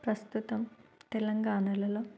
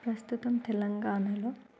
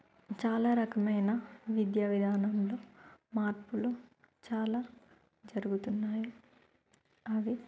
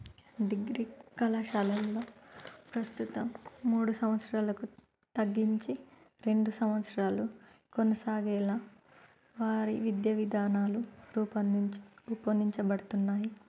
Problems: background sounds at intervals, low volume